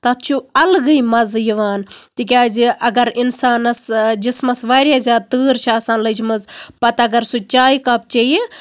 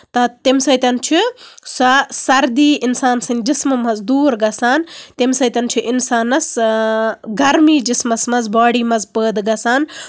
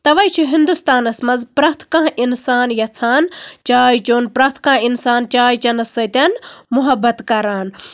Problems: background sounds at intervals